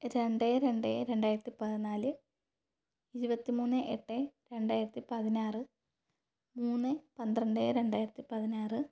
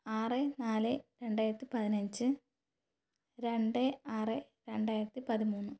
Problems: none marked